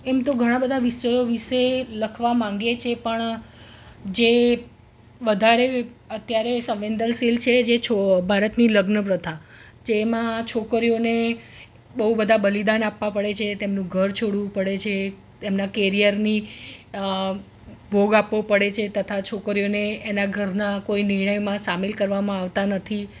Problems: none marked